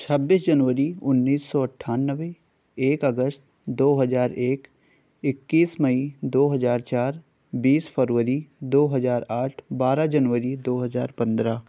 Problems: none marked